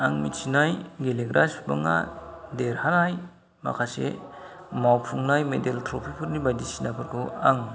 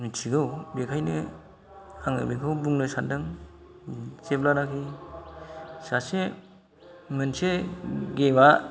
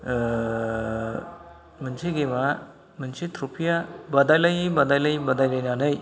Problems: low volume